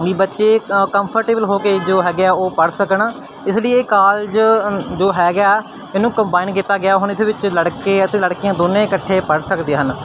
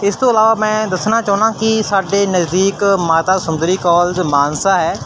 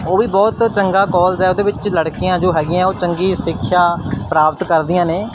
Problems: constant background noise